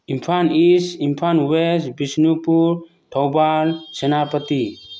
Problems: none marked